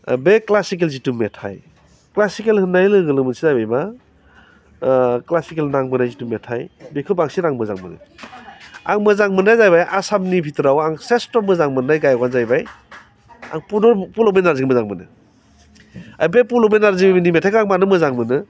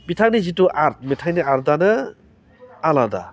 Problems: none marked